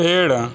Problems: constant background noise, echo